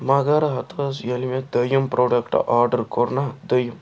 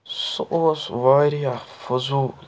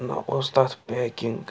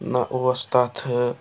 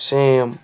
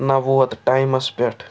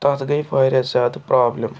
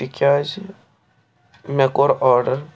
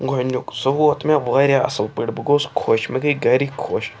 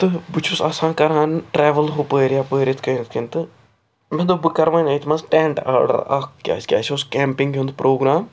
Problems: constant background noise